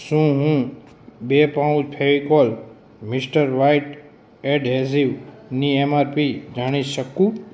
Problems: constant background noise, background conversations at intervals